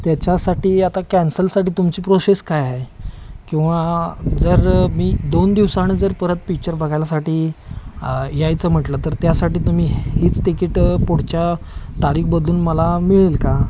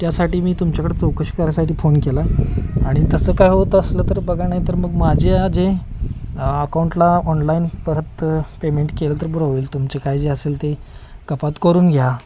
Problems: constant background noise, background conversations at intervals